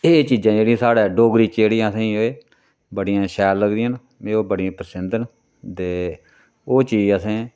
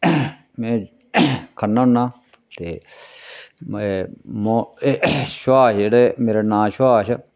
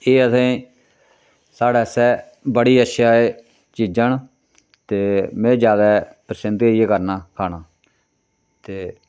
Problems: none marked